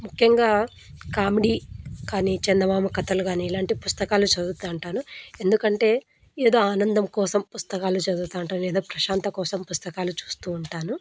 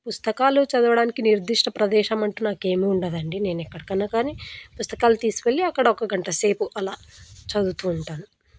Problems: background sounds at intervals